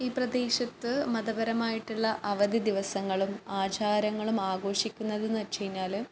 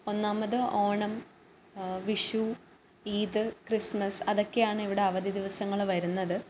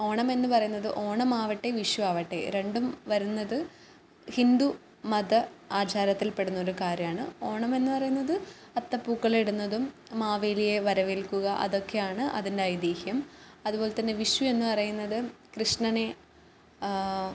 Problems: none marked